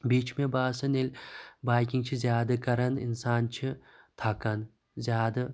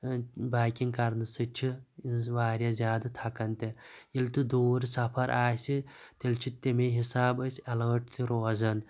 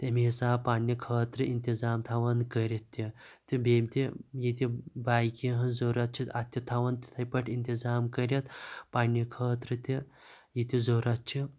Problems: constant background noise